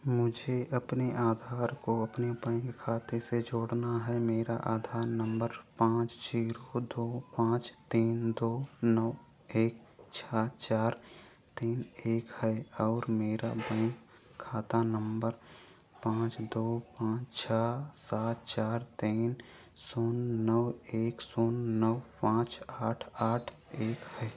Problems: background sounds at intervals